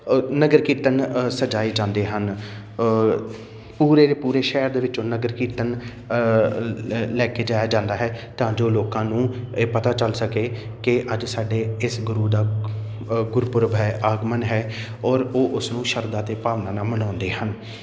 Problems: none marked